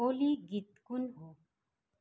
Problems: none marked